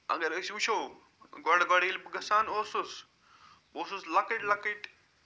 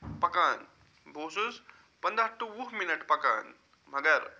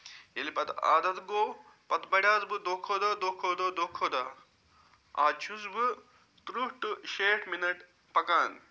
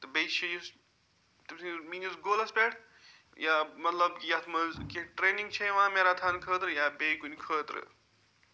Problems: background sounds at intervals